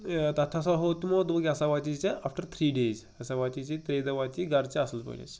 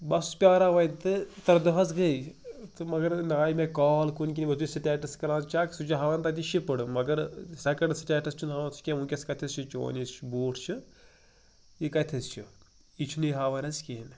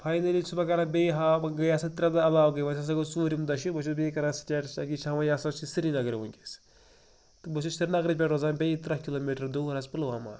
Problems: background sounds at intervals